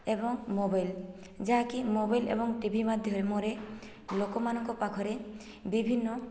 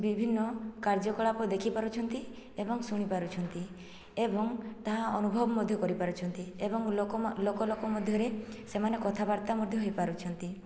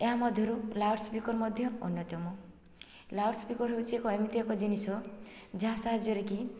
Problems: background sounds at intervals, low volume